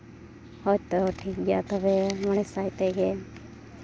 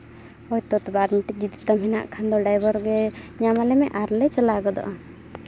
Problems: none marked